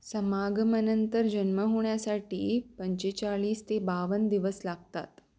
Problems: none marked